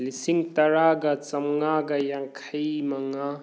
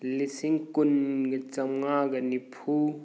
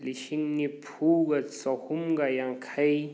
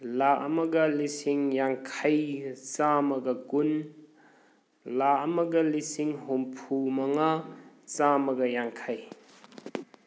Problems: background sounds at intervals